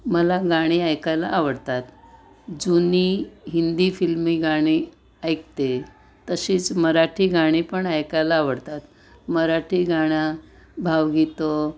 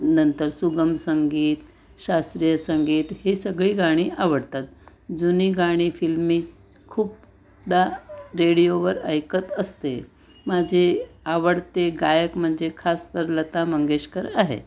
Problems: constant background noise, background conversations at intervals